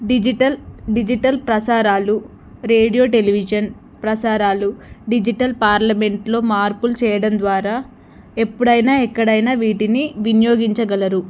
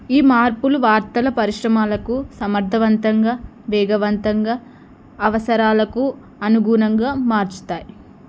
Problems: none marked